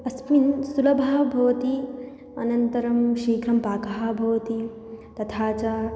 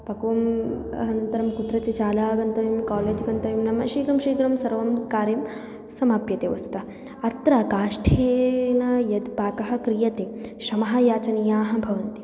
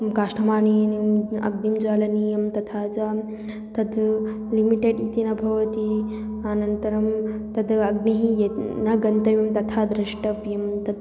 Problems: background sounds at intervals